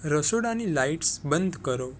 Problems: none marked